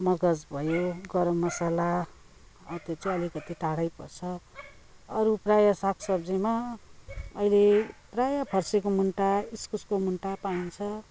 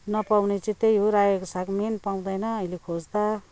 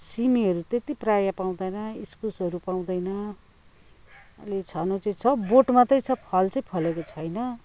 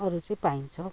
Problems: constant background noise